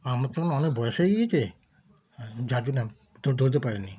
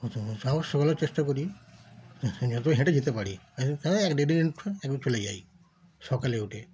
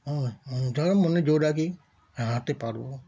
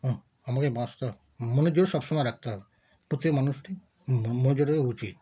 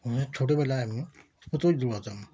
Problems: background sounds at intervals